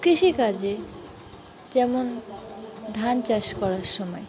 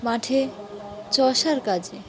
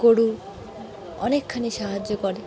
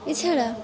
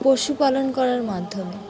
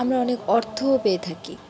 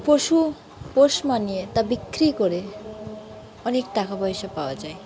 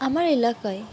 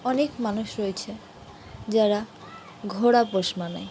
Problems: constant background noise, continuous background conversations